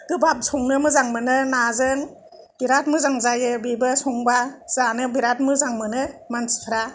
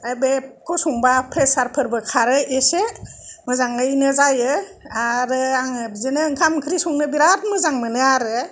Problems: none marked